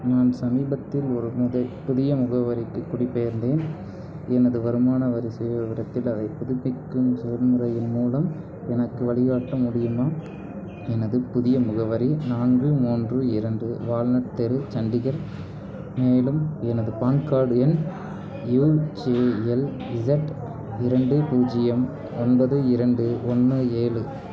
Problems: background conversations at intervals